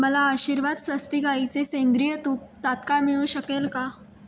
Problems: background sounds at intervals